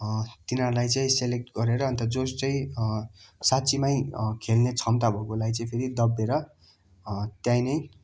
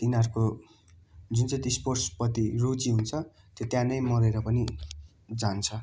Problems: constant background noise